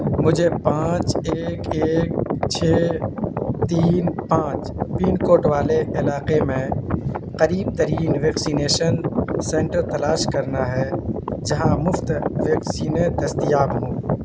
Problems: constant background noise